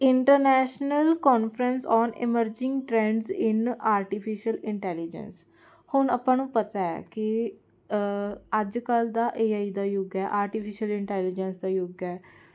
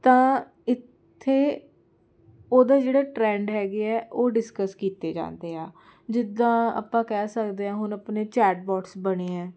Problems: none marked